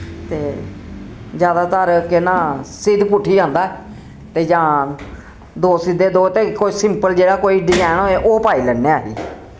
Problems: constant background noise